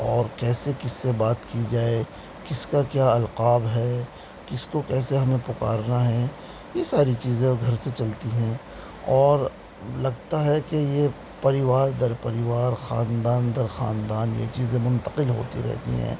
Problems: constant background noise